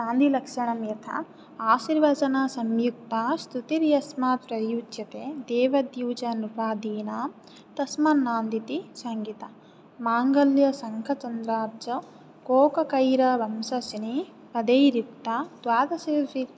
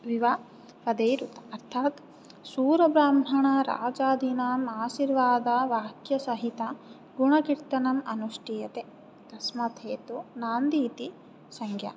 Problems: none marked